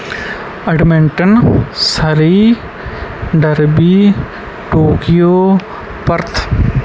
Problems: background sounds at intervals